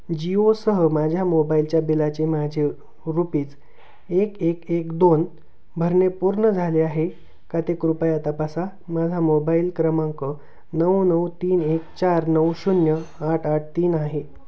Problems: constant background noise